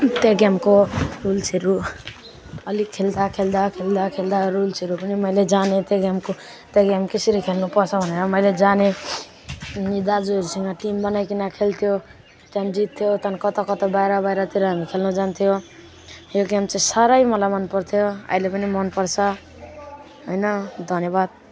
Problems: none marked